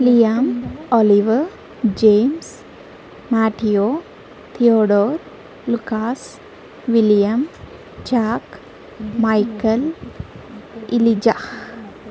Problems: none marked